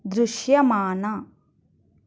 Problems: none marked